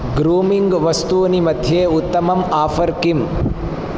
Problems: constant background noise